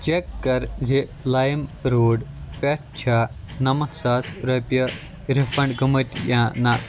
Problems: constant background noise